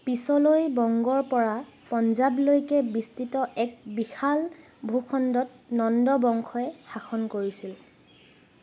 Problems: none marked